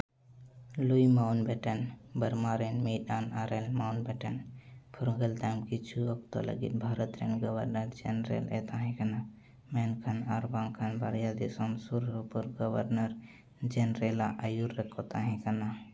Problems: low volume